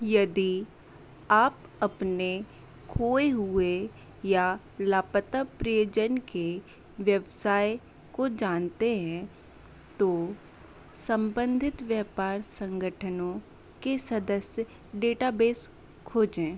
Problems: none marked